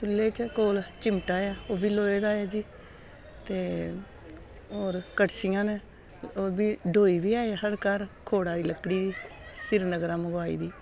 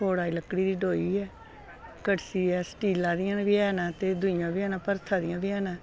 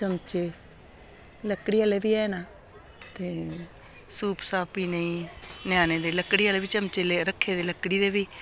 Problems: constant background noise